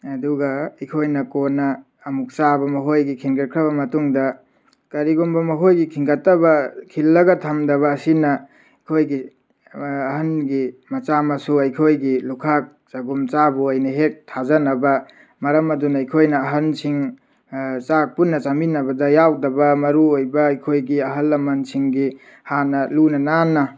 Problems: background sounds at intervals